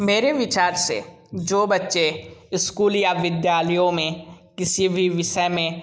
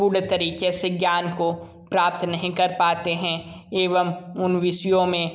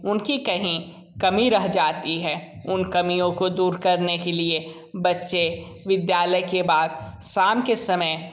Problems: constant background noise